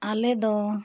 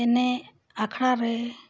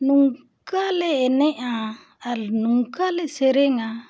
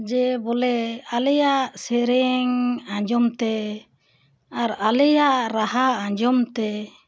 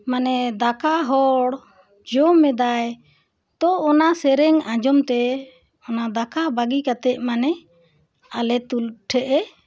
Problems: background sounds at intervals